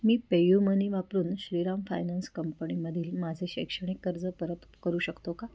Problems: constant background noise